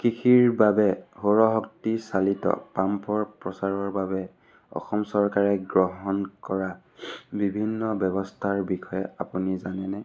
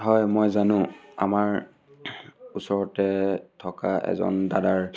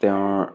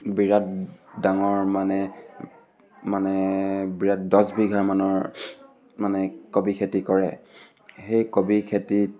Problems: constant background noise, background conversations at intervals